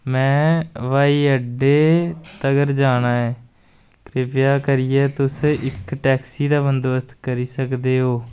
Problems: none marked